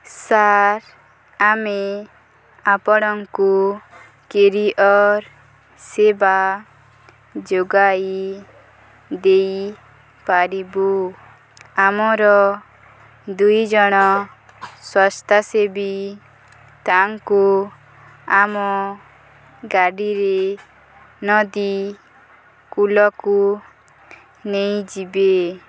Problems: none marked